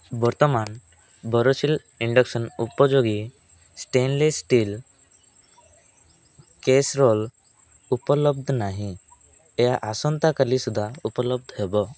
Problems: none marked